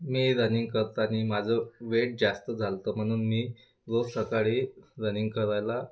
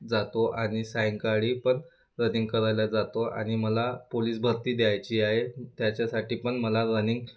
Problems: constant background noise